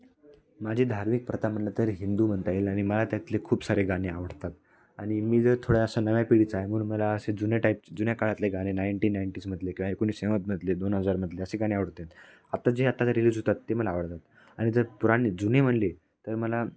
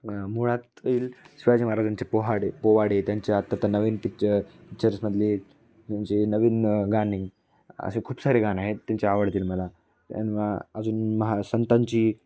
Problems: none marked